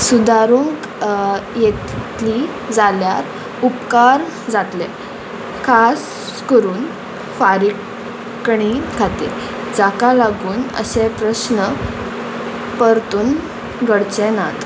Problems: constant background noise